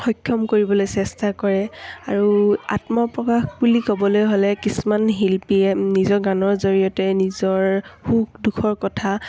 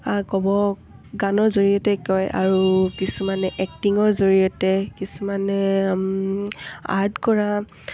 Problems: none marked